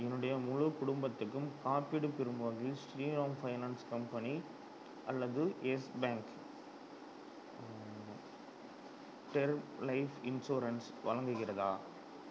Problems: background sounds at intervals, low volume